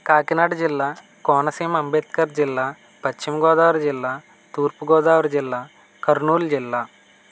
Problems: constant background noise